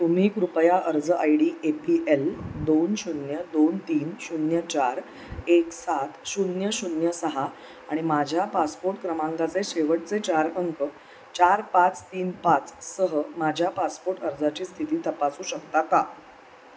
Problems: none marked